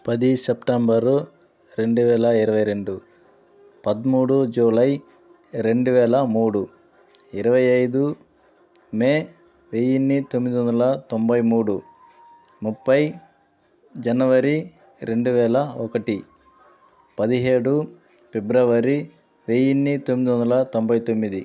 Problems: constant background noise